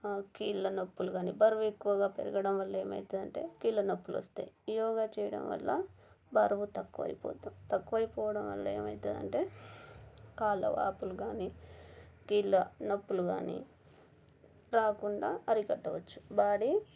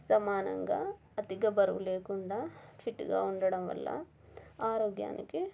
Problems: none marked